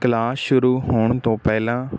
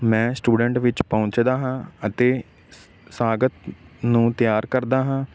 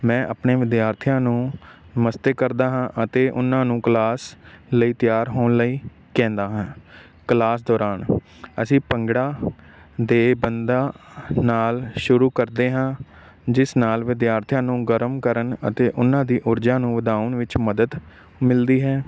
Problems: constant background noise